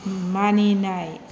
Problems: constant background noise